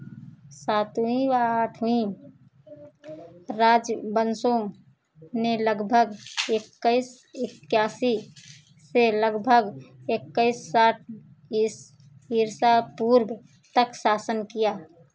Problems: constant background noise